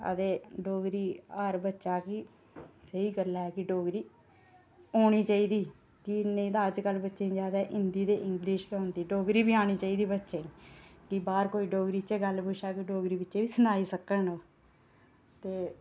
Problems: none marked